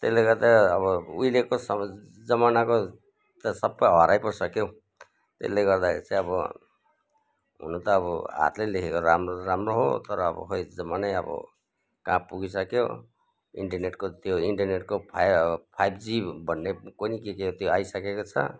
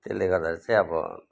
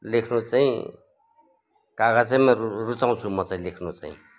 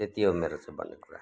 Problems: none marked